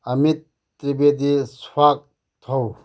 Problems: low volume